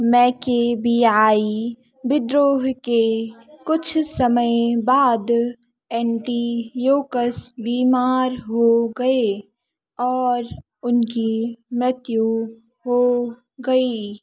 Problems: background conversations at intervals